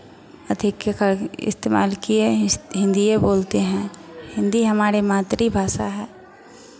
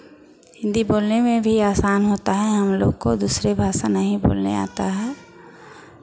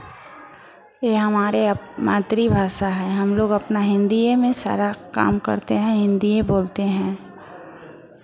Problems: none marked